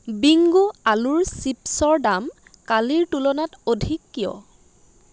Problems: constant background noise